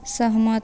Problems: none marked